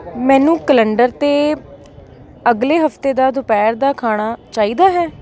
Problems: background sounds at intervals